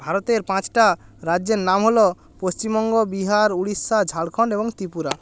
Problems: none marked